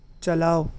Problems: background sounds at intervals